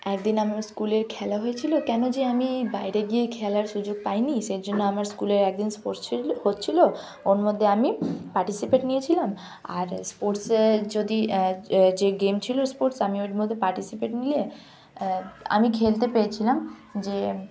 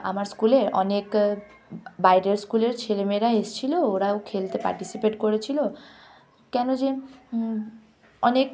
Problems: background sounds at intervals, continuous background conversations